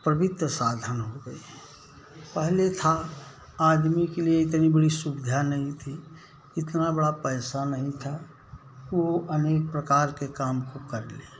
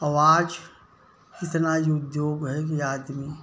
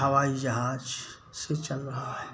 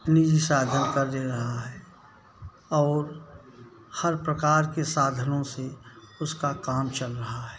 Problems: none marked